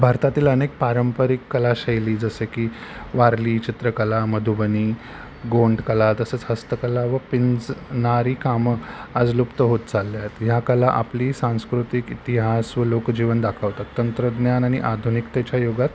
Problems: none marked